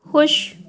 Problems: none marked